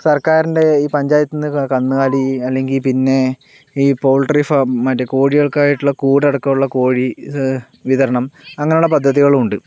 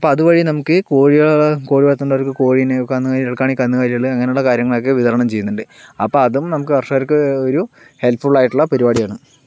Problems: none marked